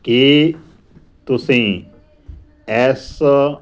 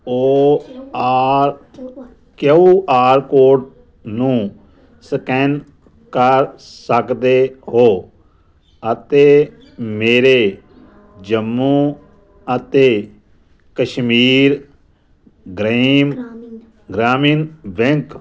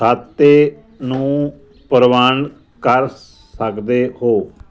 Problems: background conversations at intervals